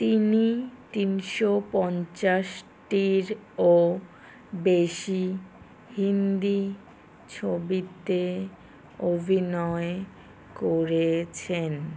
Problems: none marked